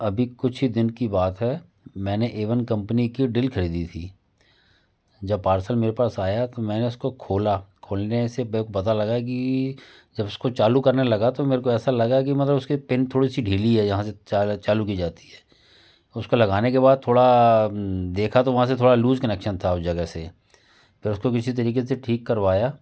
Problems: constant background noise, background conversations at intervals